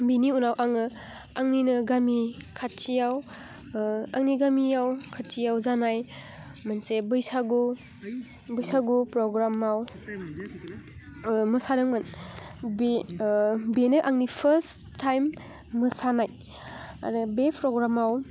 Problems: none marked